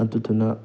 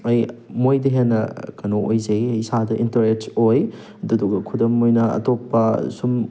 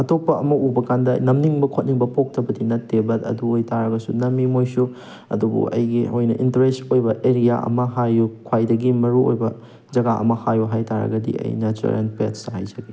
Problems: none marked